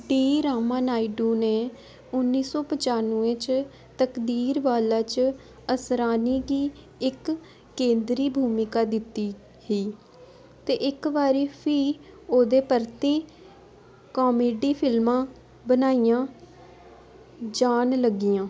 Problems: constant background noise